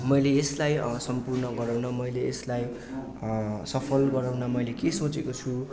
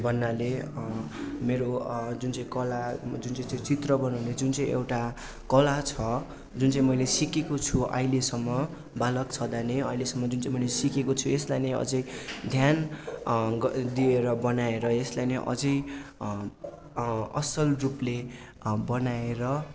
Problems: none marked